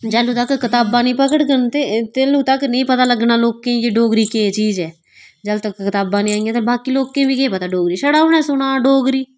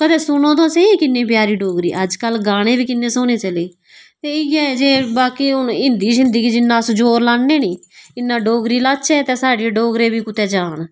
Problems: none marked